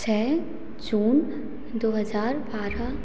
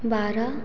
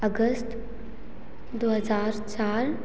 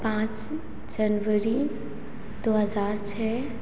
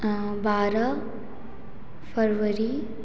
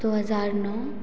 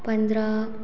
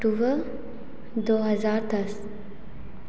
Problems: none marked